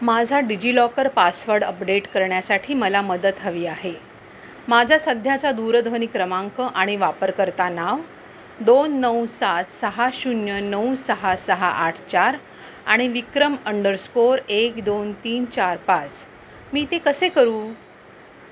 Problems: none marked